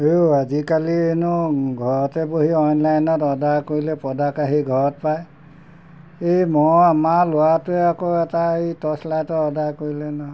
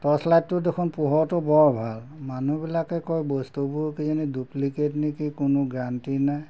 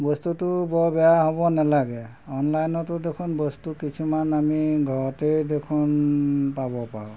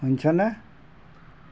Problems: background sounds at intervals